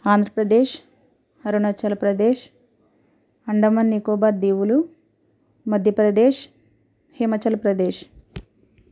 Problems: none marked